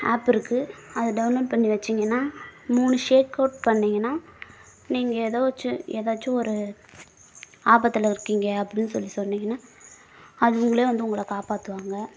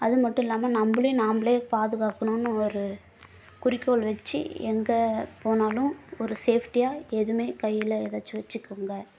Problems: background sounds at intervals